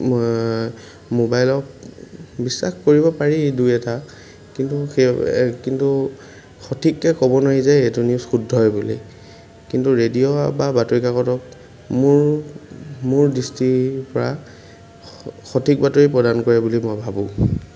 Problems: background sounds at intervals